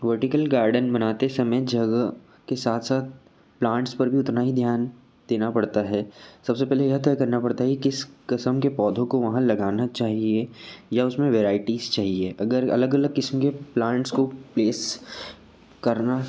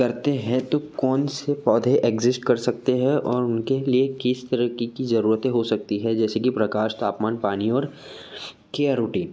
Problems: none marked